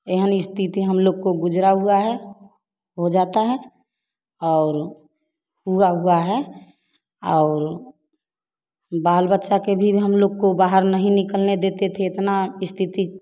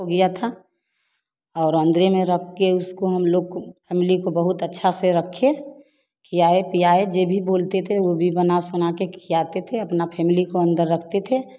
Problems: none marked